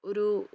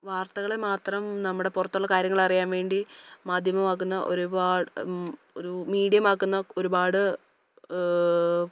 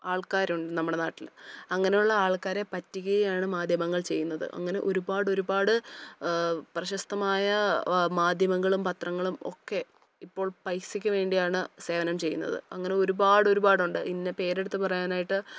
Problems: none marked